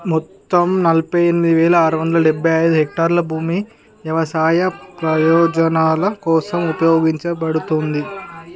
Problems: background conversations at intervals